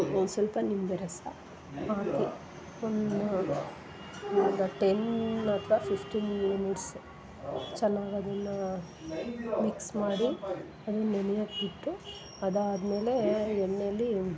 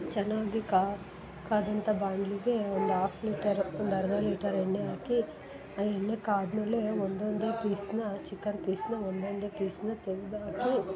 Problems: background sounds at intervals, background conversations at intervals